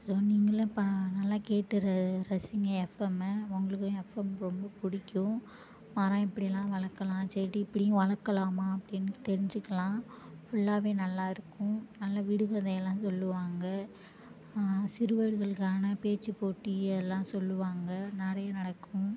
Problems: low volume